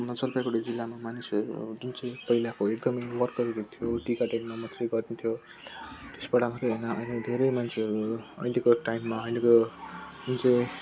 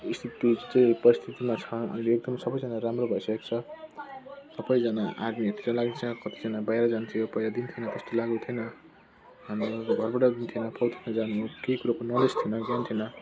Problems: constant background noise, low volume